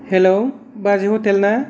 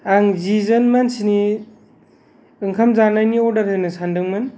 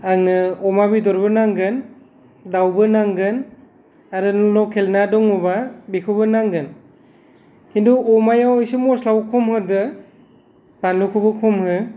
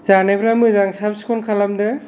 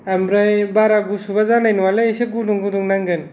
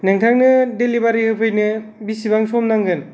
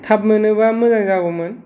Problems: none marked